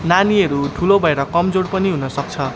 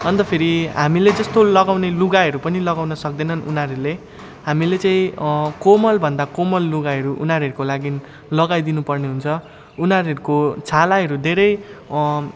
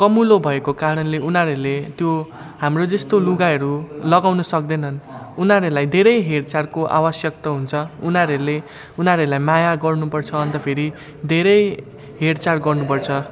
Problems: constant background noise, continuous background conversations